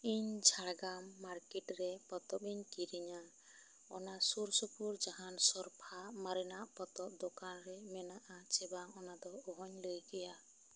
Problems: constant background noise